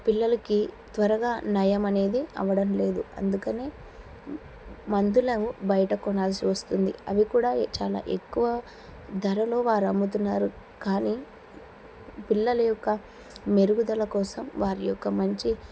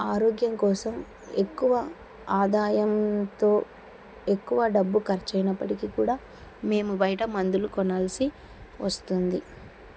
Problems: none marked